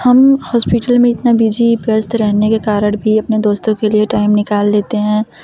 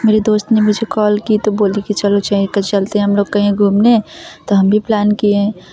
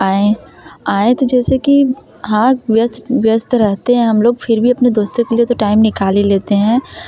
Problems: constant background noise, background conversations at intervals